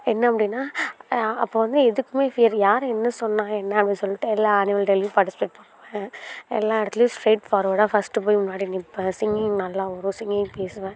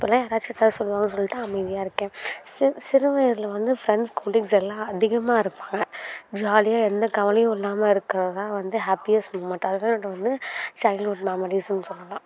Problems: background sounds at intervals, background conversations at intervals